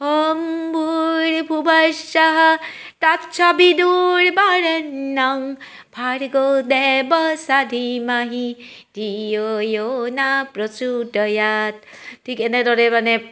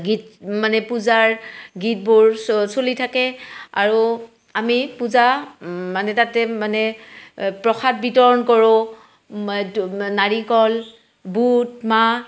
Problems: background sounds at intervals